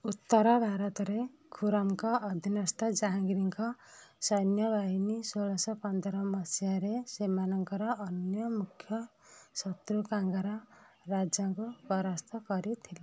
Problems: low volume